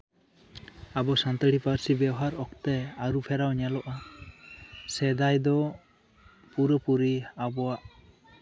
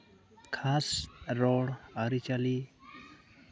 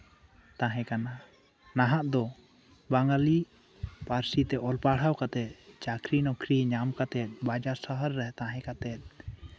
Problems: background conversations at intervals, low volume